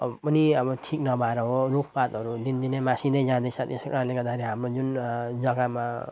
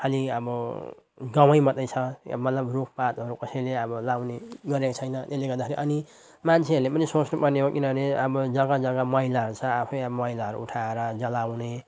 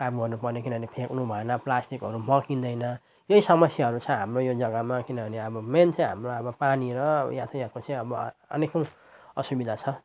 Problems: none marked